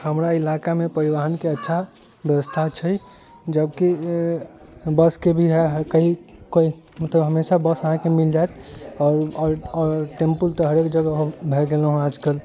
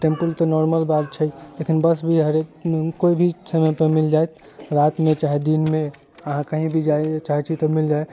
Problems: constant background noise